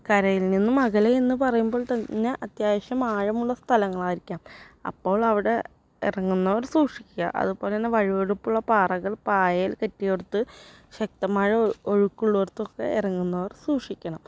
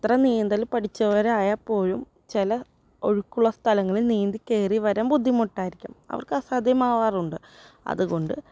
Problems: none marked